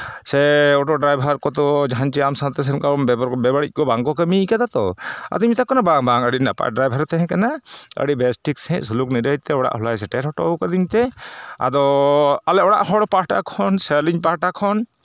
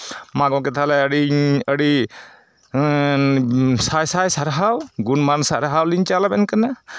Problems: none marked